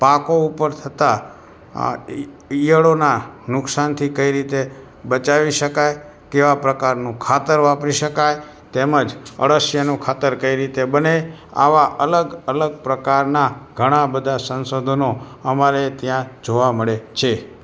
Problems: background sounds at intervals